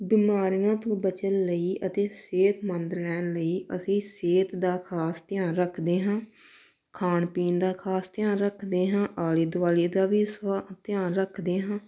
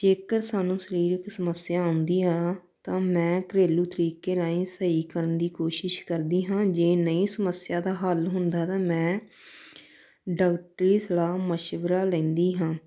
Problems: none marked